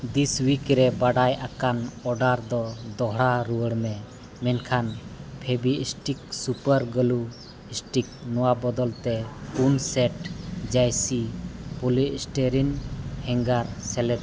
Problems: constant background noise